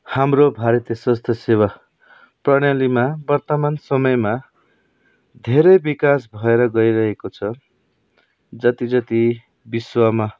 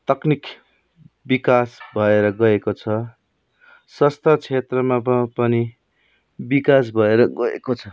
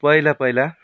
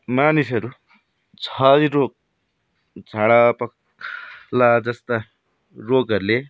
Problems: background sounds at intervals